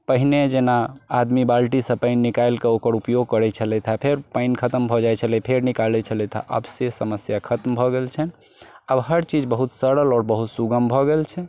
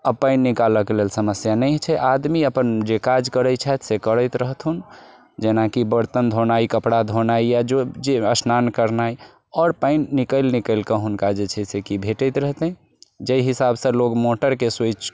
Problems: background sounds at intervals